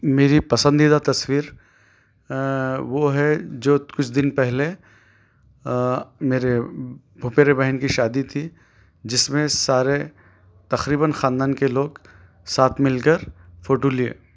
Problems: none marked